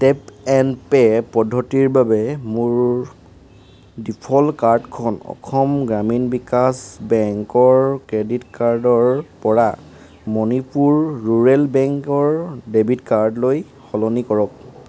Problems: constant background noise